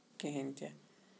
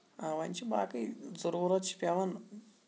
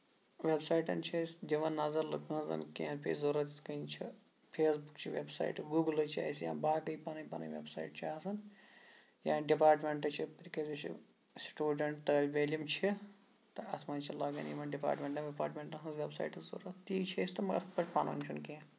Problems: background sounds at intervals, low volume